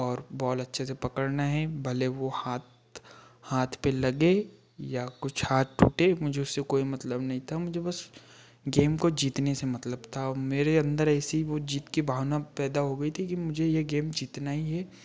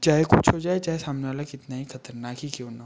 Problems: background sounds at intervals